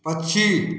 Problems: none marked